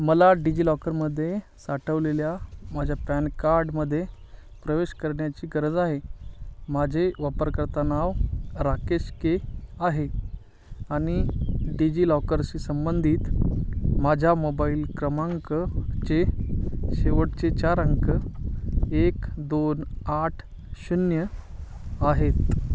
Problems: constant background noise